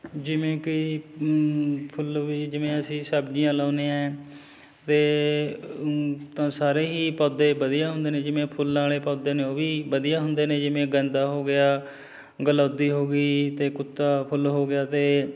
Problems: none marked